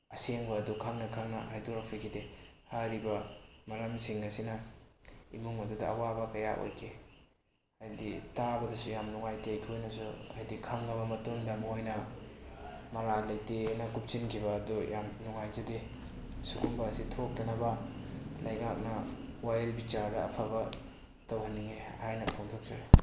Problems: background sounds at intervals